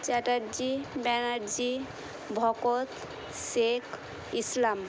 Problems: constant background noise